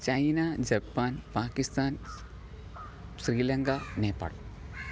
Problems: background sounds at intervals, low volume